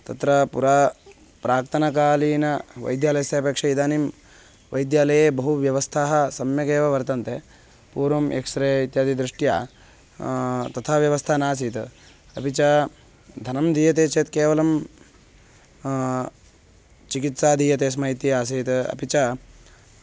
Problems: constant background noise